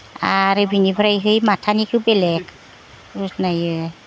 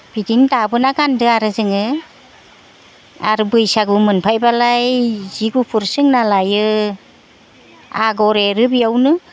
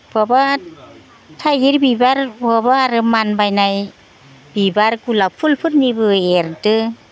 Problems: background conversations at intervals